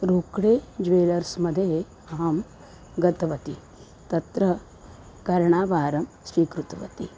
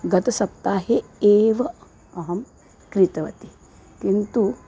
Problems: background sounds at intervals